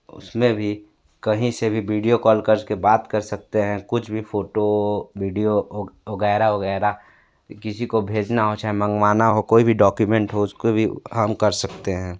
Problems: background sounds at intervals